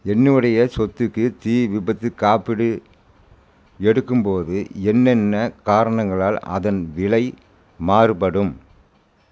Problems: constant background noise